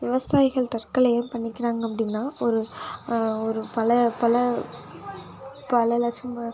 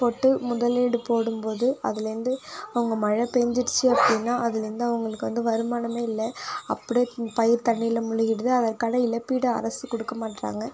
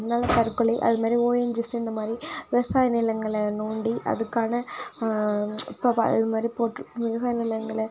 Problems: background sounds at intervals